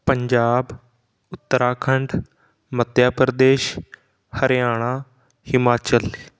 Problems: background sounds at intervals